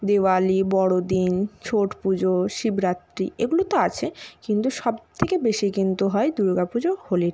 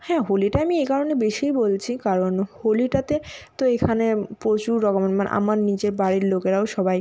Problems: none marked